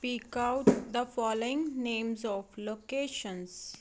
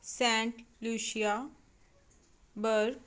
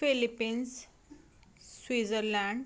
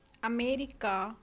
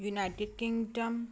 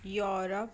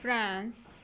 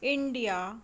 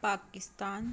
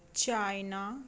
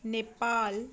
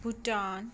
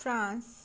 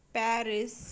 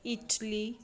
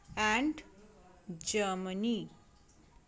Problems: background sounds at intervals